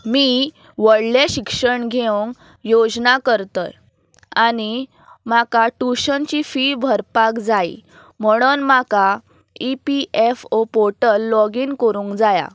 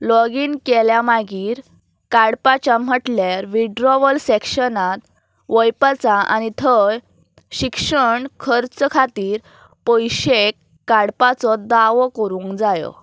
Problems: none marked